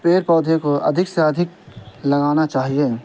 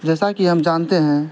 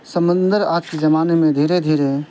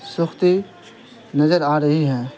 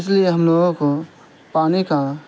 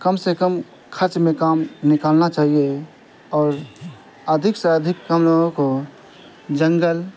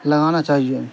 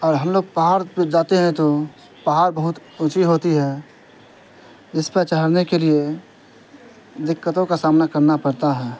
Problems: constant background noise